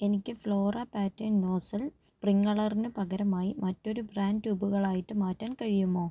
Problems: low volume